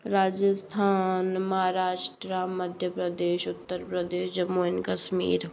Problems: none marked